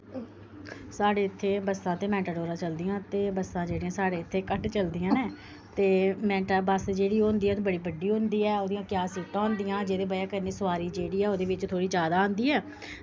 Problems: constant background noise